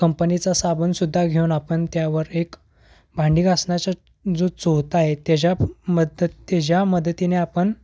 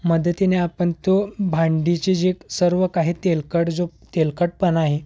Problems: constant background noise